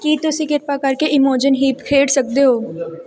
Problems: background sounds at intervals